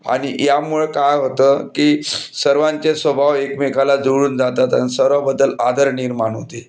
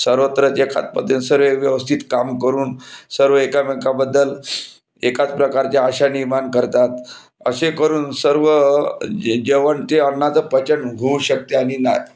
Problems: background sounds at intervals